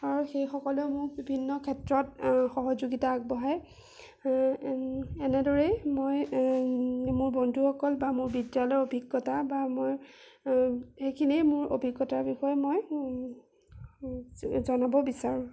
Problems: none marked